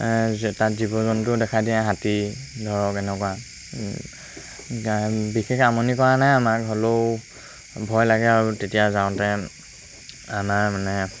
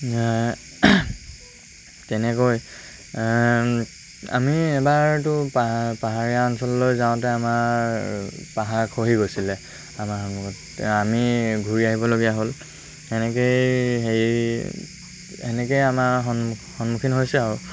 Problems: constant background noise